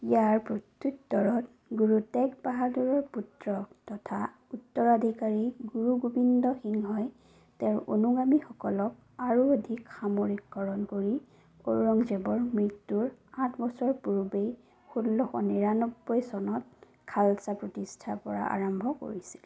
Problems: low volume